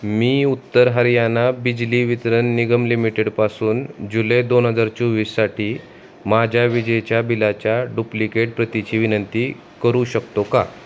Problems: none marked